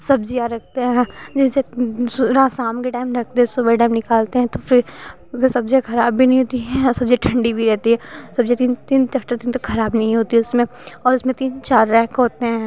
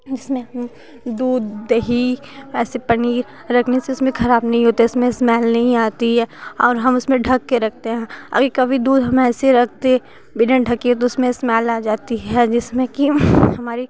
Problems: constant background noise